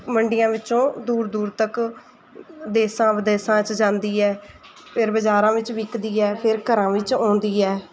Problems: background sounds at intervals, background conversations at intervals